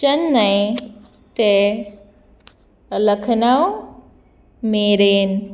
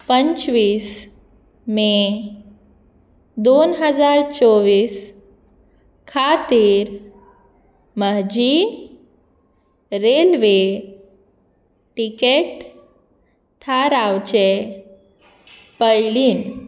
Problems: none marked